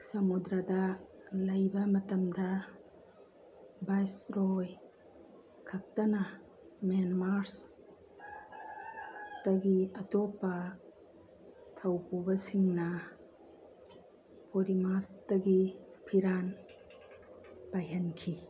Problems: constant background noise